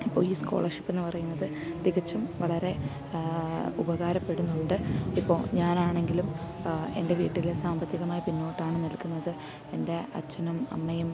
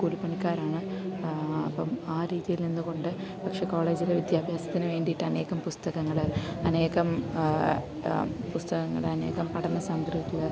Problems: constant background noise, low volume